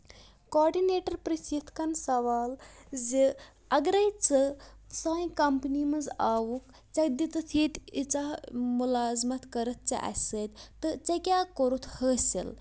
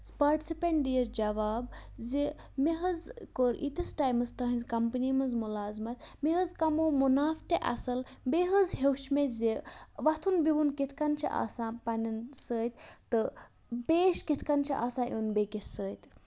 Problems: constant background noise